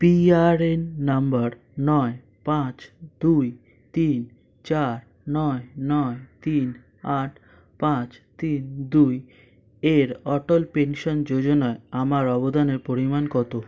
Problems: constant background noise